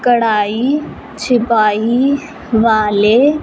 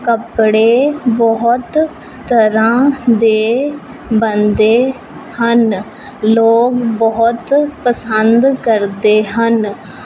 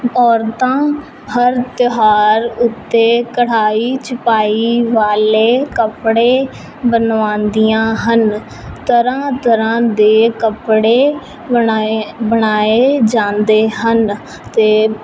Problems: none marked